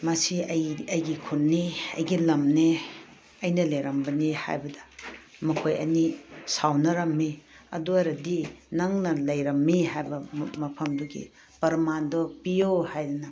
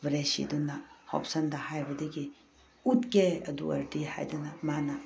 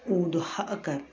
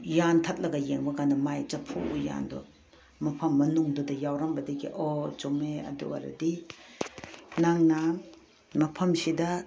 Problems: background sounds at intervals